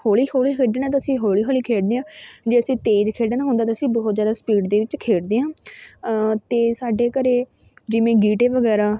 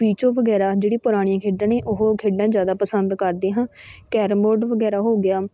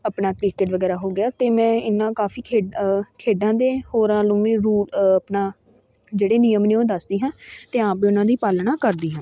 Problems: continuous background conversations